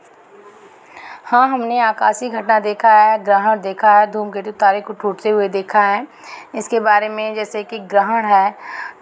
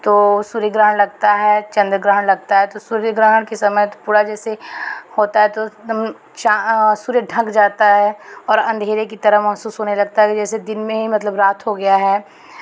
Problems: constant background noise